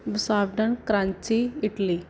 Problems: background sounds at intervals